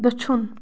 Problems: background sounds at intervals